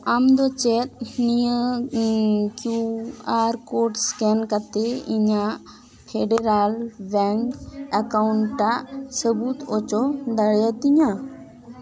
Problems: continuous background conversations